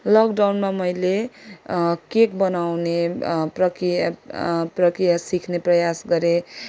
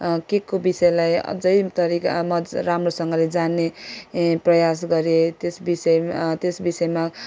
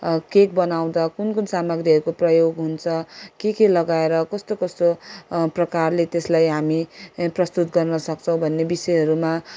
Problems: background sounds at intervals